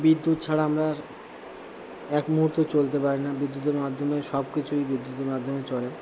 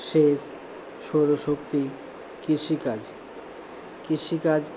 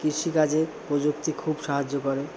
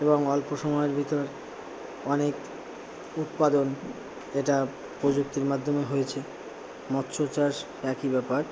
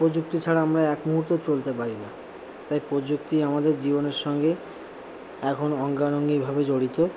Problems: constant background noise